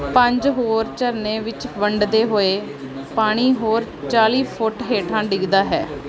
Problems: constant background noise